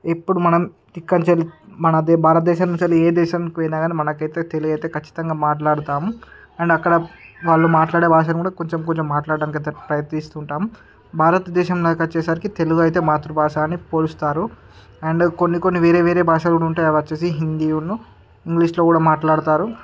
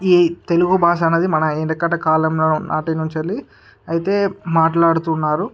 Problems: background sounds at intervals, background conversations at intervals